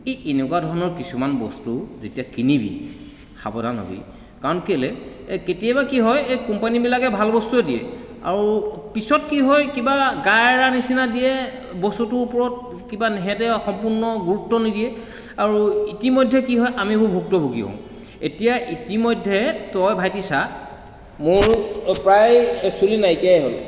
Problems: constant background noise, echo